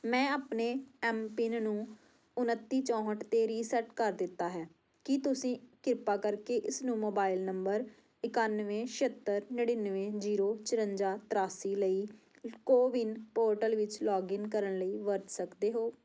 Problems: background sounds at intervals